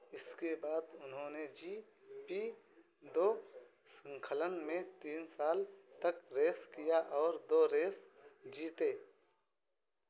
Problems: constant background noise